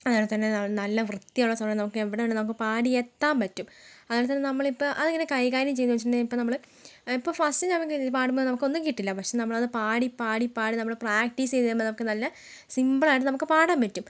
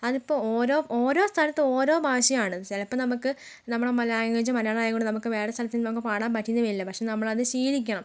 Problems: background sounds at intervals, low volume